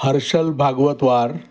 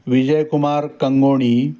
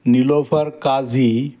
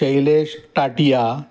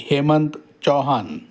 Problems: constant background noise